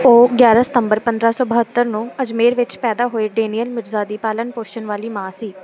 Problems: constant background noise